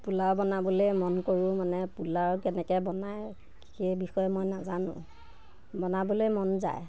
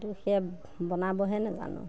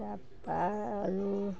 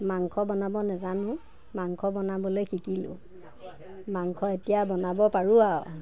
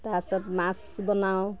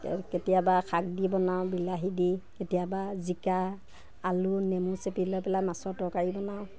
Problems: none marked